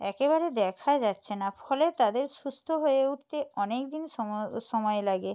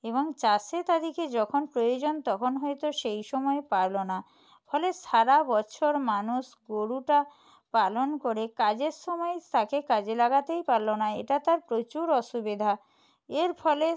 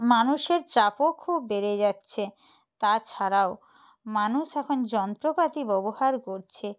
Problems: background conversations at intervals